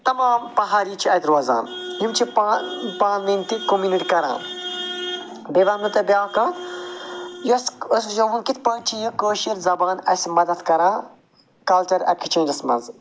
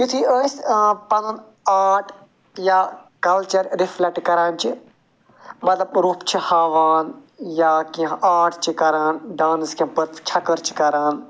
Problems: constant background noise